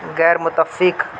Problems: constant background noise